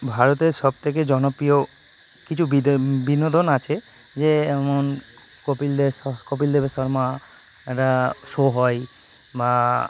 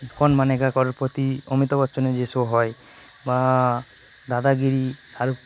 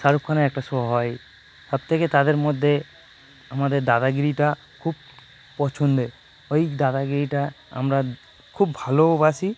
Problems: constant background noise